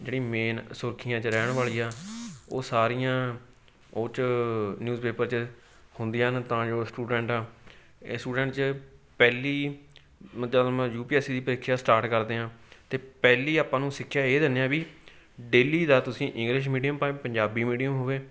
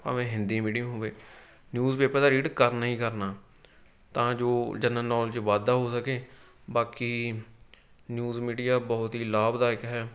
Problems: none marked